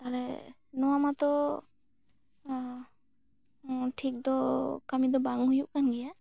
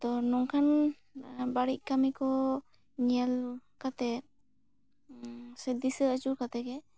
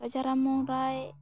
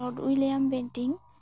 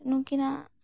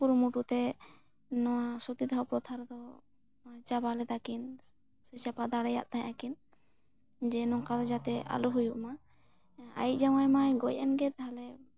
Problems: none marked